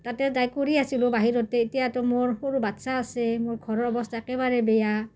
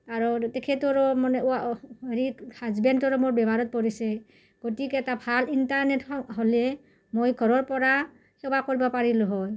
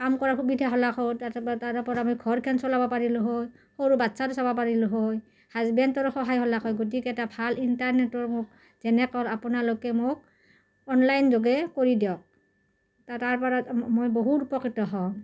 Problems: background sounds at intervals